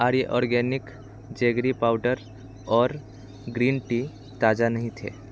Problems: constant background noise